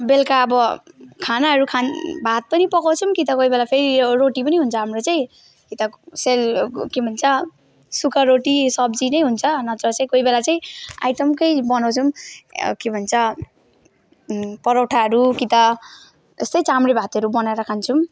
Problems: none marked